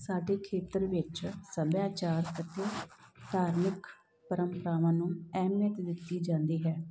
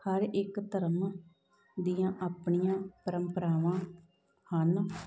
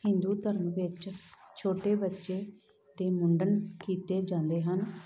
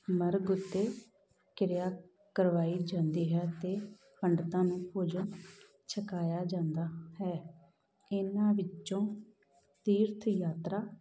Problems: background sounds at intervals